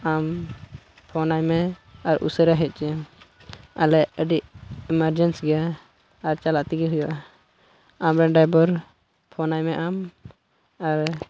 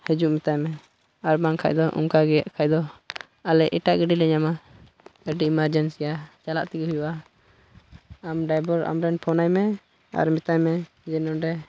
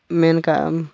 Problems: constant background noise, low volume